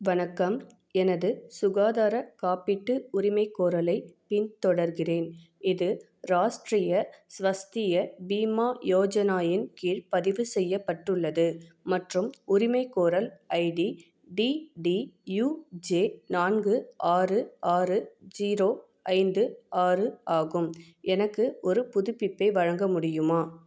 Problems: none marked